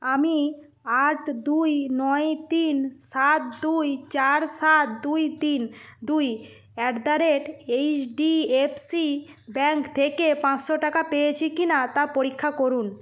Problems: none marked